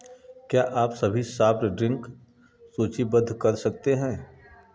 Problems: background sounds at intervals